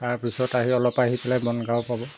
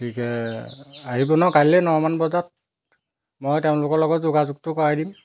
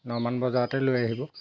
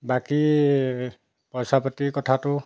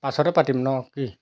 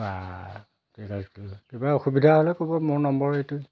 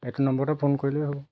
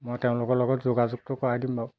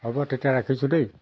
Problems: background sounds at intervals